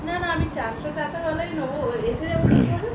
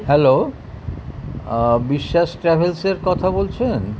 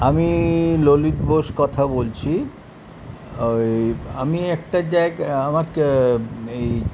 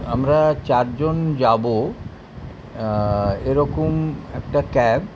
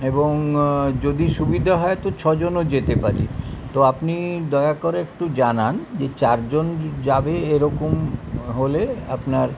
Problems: constant background noise, continuous background conversations